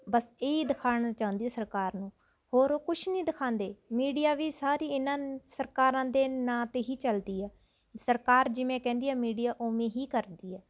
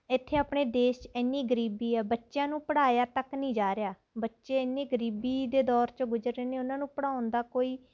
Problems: constant background noise